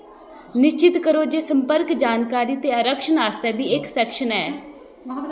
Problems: background sounds at intervals